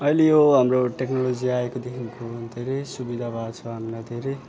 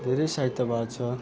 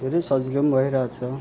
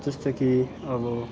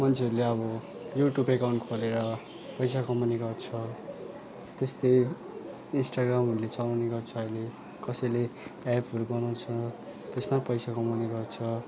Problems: constant background noise, continuous background conversations